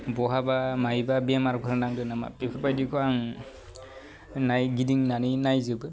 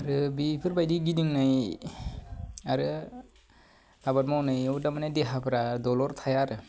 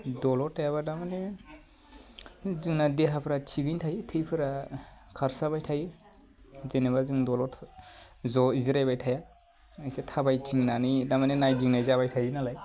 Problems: low volume